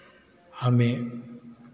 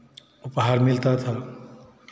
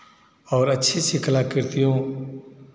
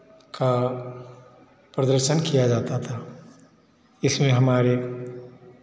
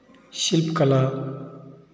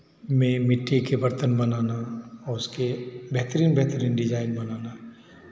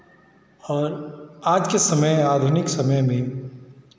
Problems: background sounds at intervals, background conversations at intervals